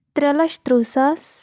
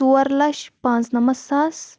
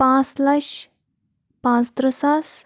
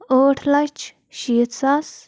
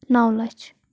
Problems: none marked